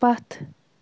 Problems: background sounds at intervals